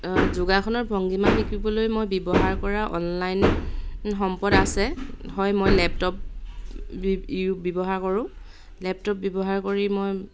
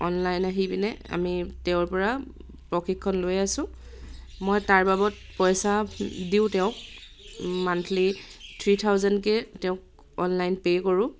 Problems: none marked